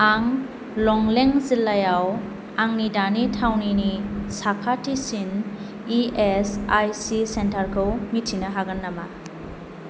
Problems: constant background noise